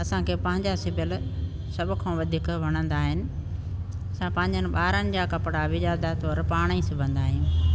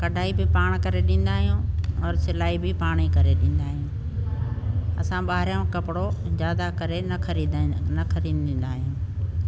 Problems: constant background noise